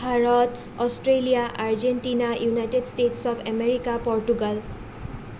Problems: none marked